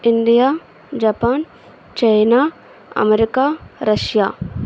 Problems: constant background noise